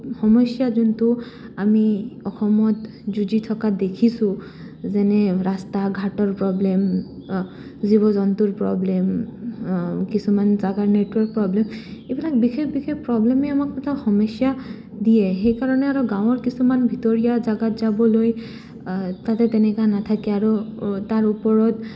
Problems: none marked